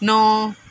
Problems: background sounds at intervals